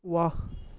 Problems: none marked